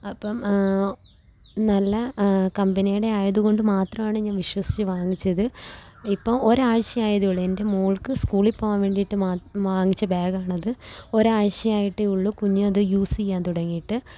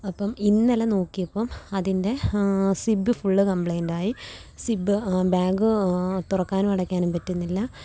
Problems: constant background noise, low volume